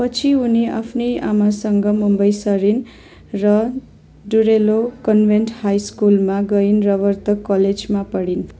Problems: none marked